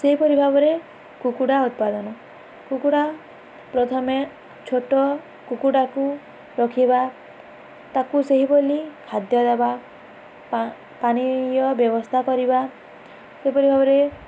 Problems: none marked